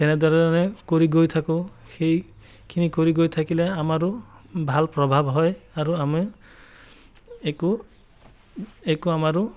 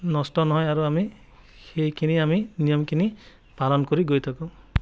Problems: background sounds at intervals